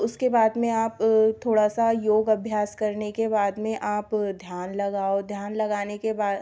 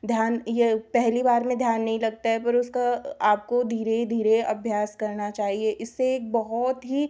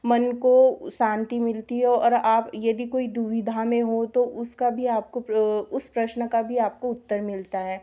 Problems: background sounds at intervals